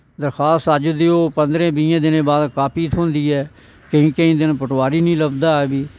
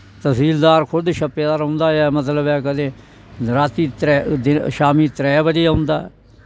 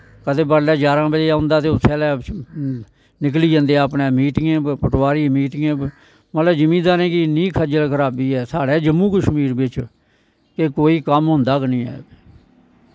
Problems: constant background noise